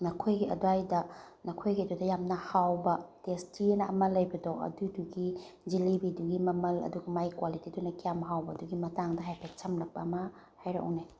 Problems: none marked